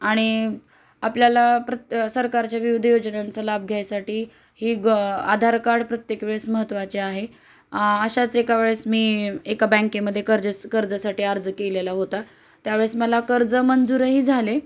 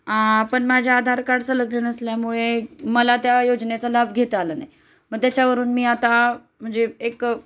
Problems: constant background noise